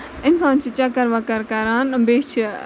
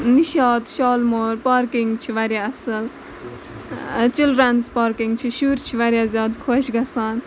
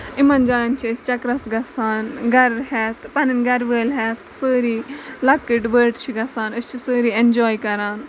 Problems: constant background noise